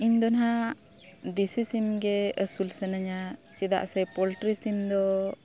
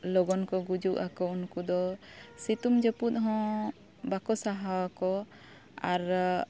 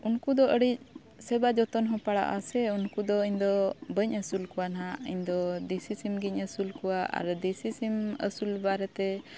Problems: background sounds at intervals